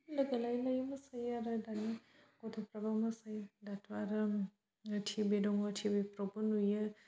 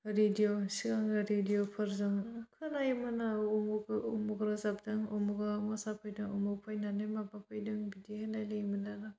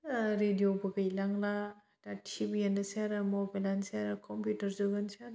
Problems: low volume